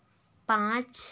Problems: none marked